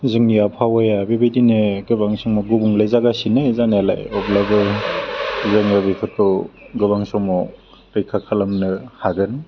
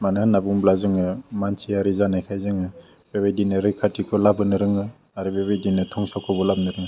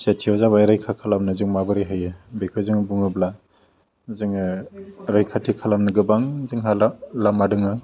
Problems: constant background noise